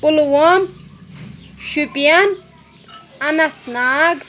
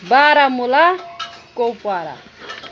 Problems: constant background noise